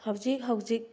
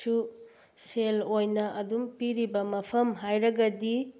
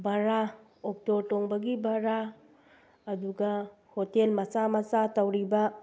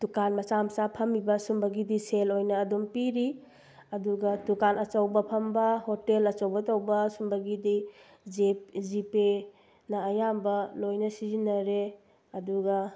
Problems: none marked